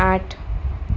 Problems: none marked